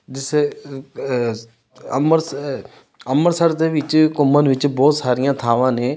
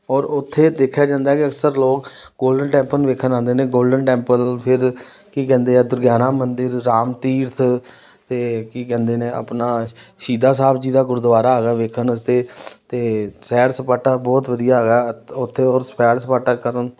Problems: background sounds at intervals